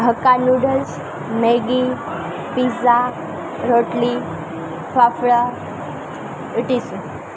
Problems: constant background noise